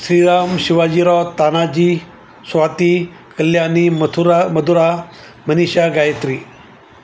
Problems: constant background noise